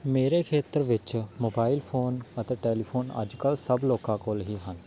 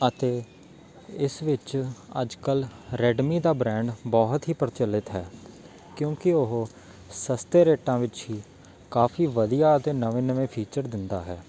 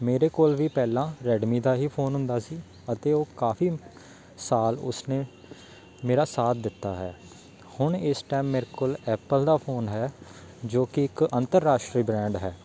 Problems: background sounds at intervals